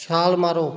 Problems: background sounds at intervals